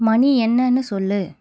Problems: none marked